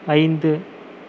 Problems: none marked